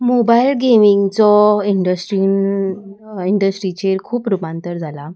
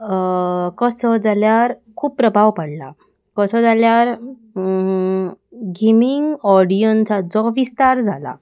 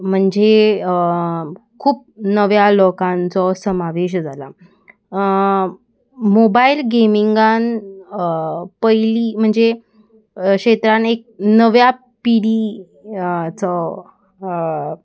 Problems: constant background noise